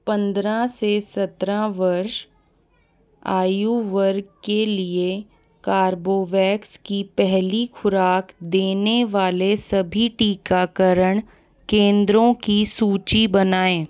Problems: background conversations at intervals